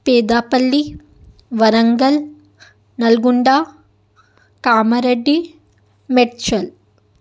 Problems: background sounds at intervals